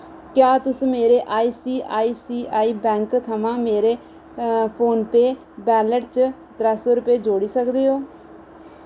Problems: none marked